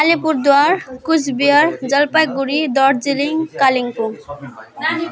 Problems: constant background noise